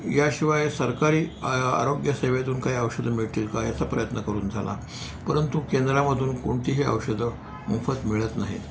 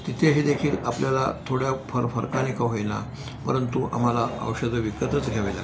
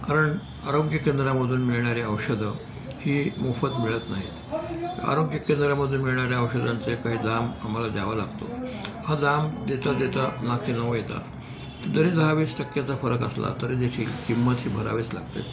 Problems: background sounds at intervals, background conversations at intervals